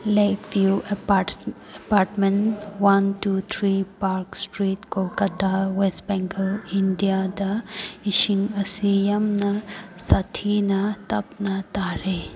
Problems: background conversations at intervals